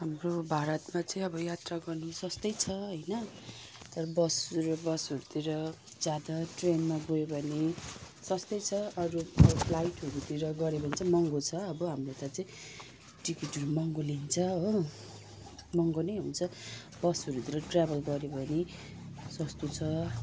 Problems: constant background noise